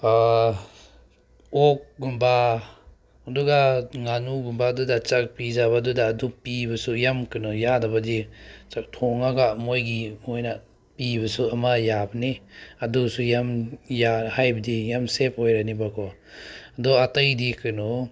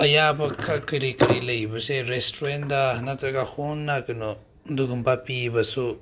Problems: none marked